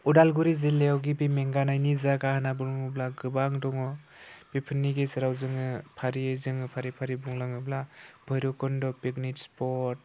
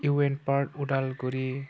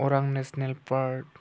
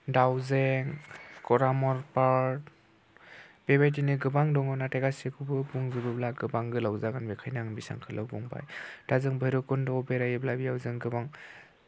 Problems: none marked